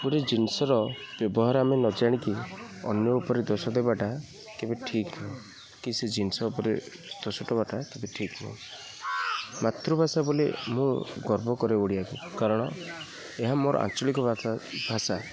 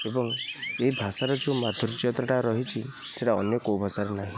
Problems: constant background noise, continuous background conversations